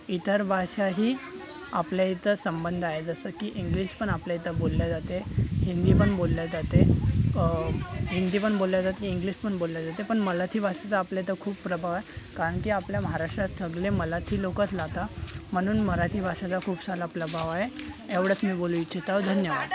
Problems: constant background noise, continuous background conversations